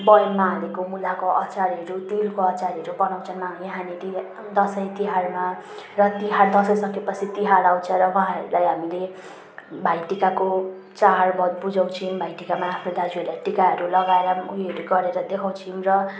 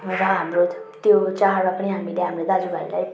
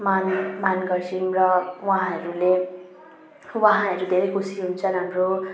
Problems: background sounds at intervals